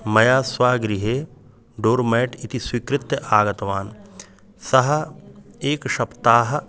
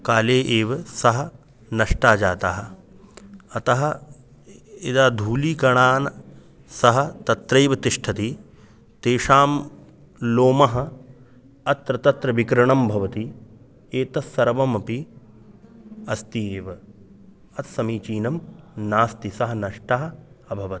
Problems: continuous background conversations